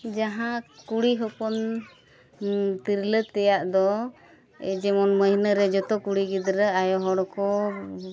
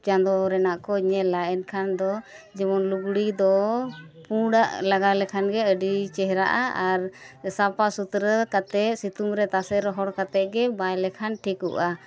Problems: none marked